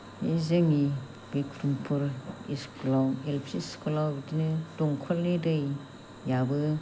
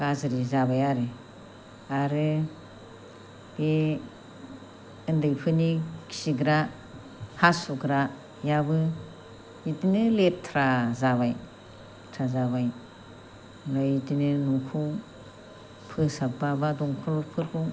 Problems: low volume